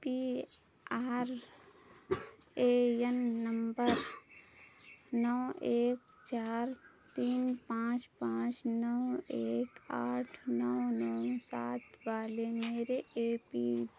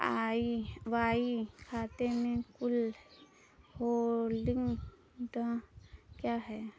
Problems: none marked